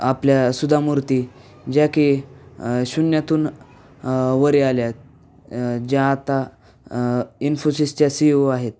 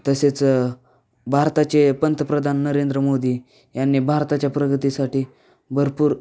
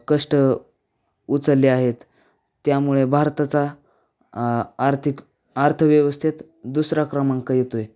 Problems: none marked